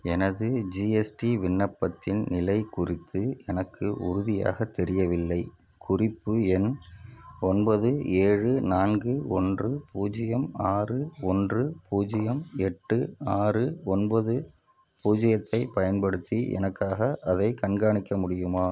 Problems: none marked